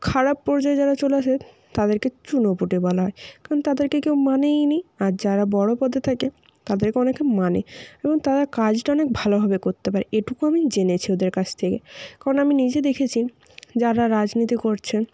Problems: none marked